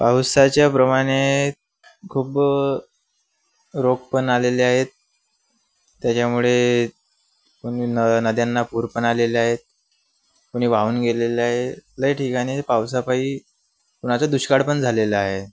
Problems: none marked